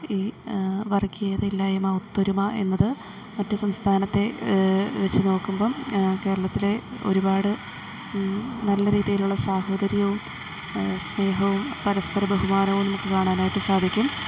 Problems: background sounds at intervals, low volume